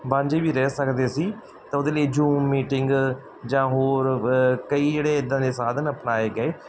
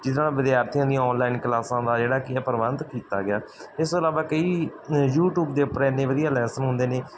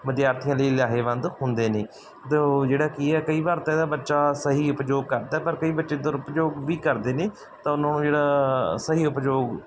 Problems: none marked